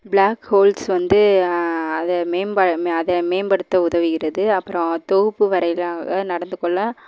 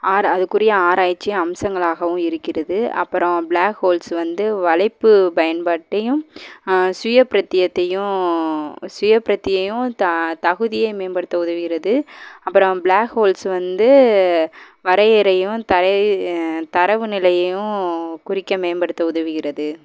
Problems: background sounds at intervals